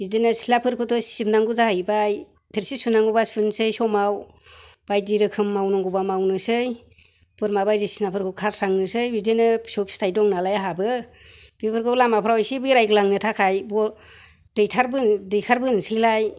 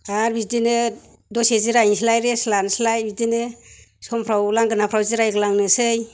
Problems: none marked